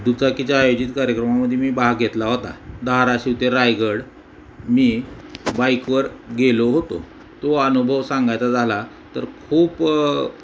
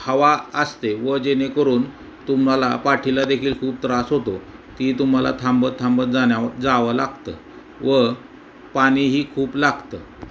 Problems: constant background noise